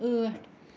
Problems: constant background noise, low volume